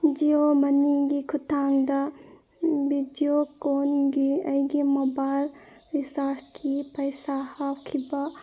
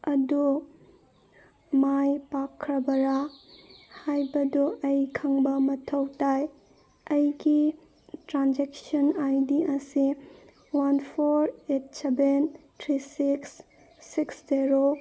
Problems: background sounds at intervals